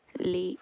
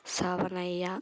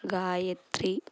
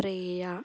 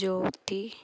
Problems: constant background noise